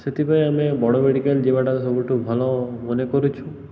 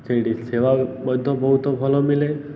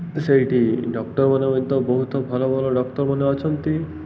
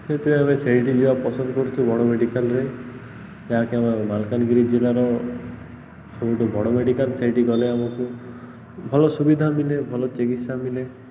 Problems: constant background noise